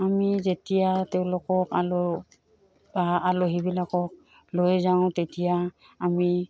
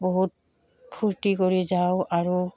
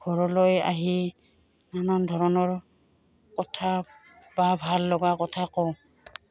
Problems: background sounds at intervals